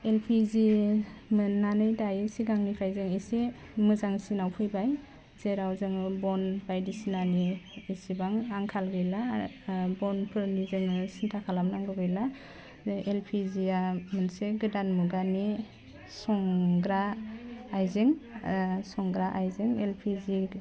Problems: none marked